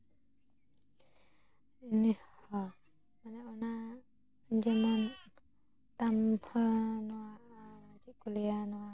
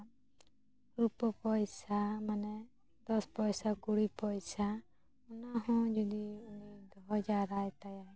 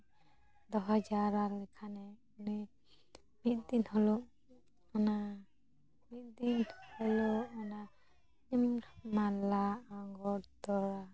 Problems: none marked